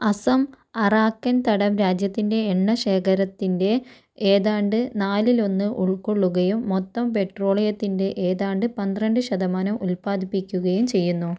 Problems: none marked